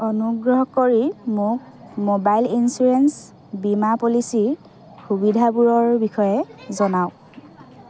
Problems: constant background noise, continuous background conversations